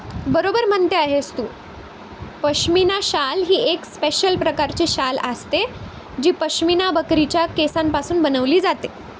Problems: constant background noise